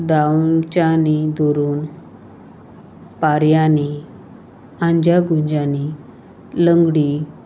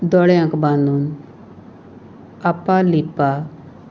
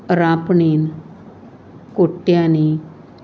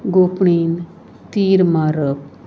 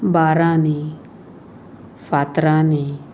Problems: none marked